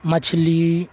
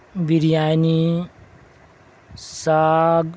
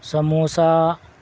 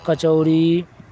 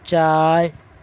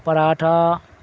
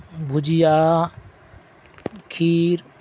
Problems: constant background noise